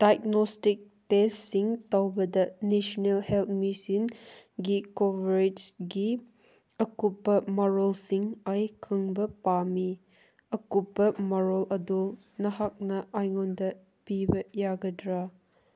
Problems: none marked